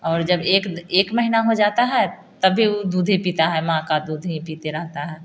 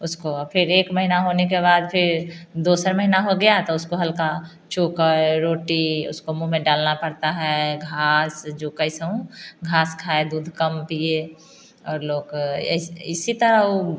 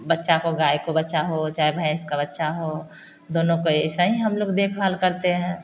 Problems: constant background noise